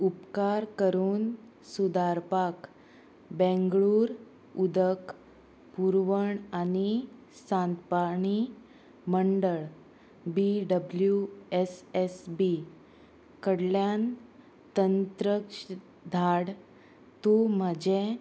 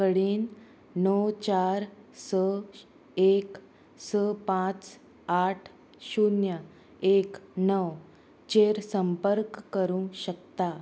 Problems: constant background noise, background conversations at intervals